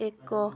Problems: low volume